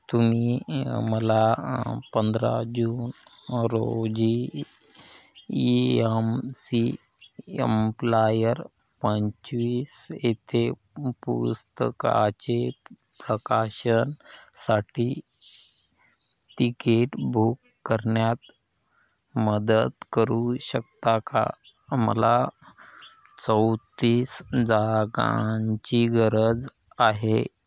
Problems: none marked